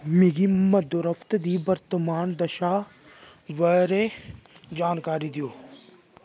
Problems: constant background noise